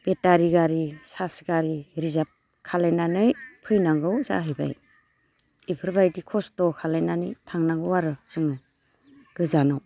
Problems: constant background noise